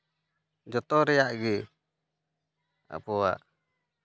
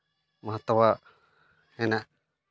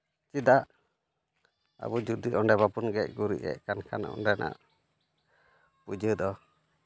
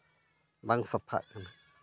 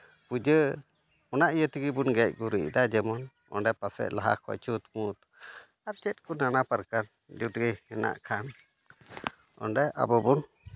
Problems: background sounds at intervals, background conversations at intervals